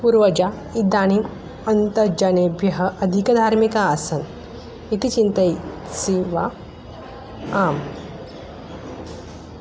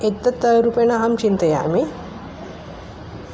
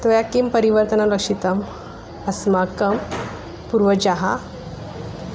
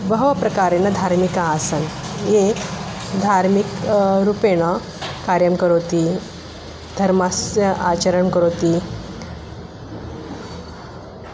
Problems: constant background noise